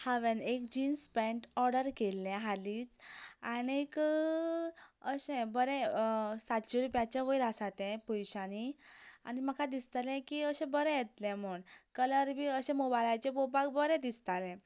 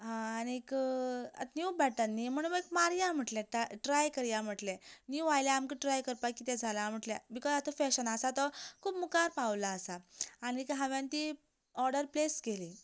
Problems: constant background noise